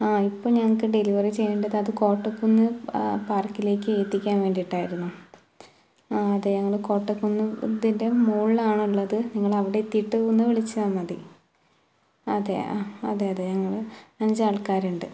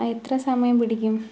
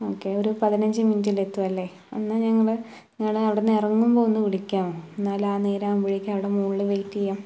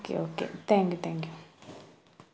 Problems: none marked